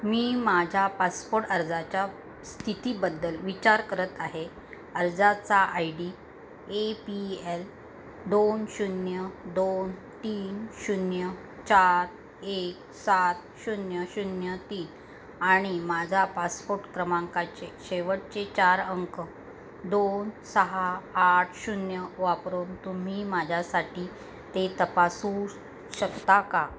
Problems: constant background noise